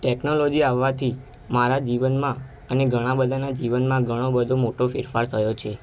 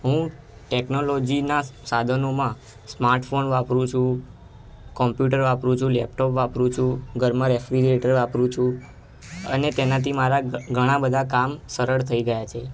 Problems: constant background noise